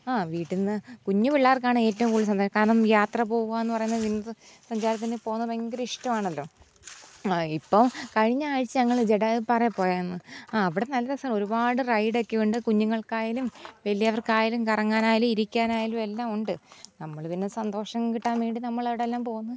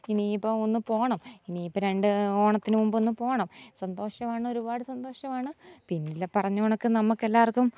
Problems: none marked